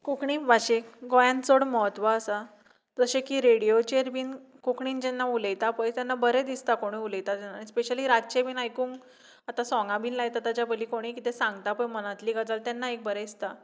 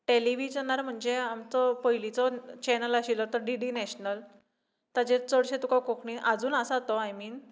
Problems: none marked